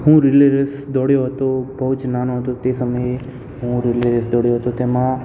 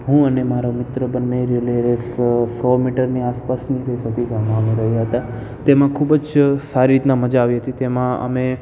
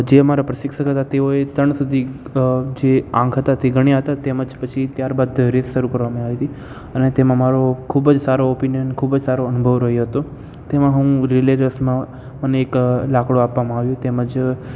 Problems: constant background noise, echo